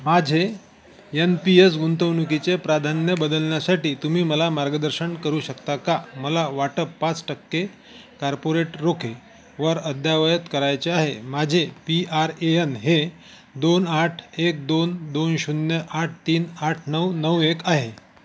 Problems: constant background noise